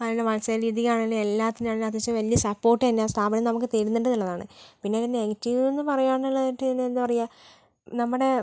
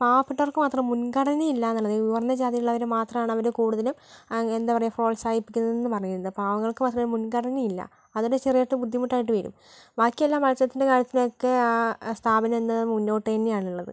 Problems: none marked